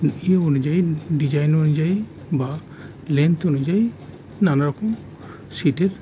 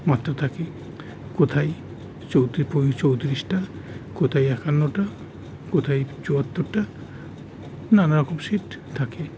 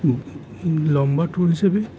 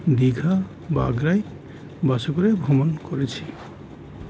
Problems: none marked